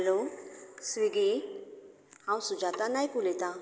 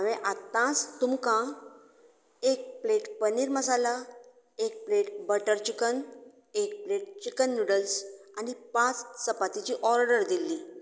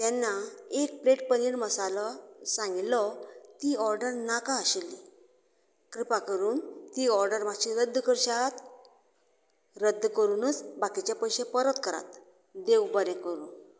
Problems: constant background noise